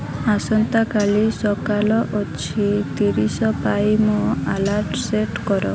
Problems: constant background noise